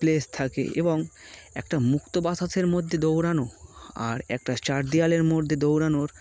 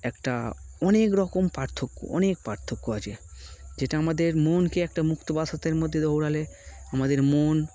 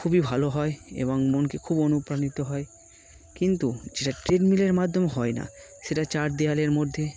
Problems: constant background noise